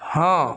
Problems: constant background noise, low volume